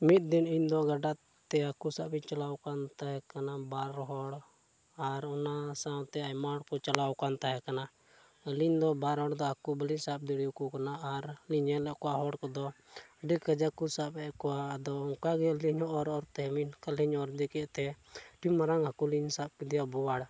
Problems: background sounds at intervals